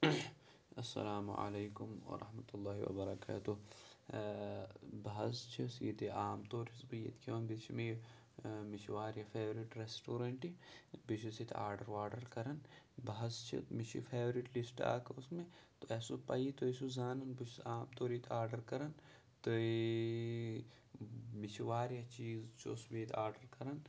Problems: background sounds at intervals, low volume